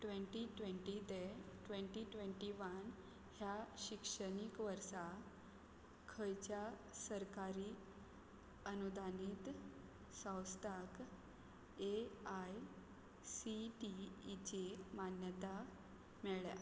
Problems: none marked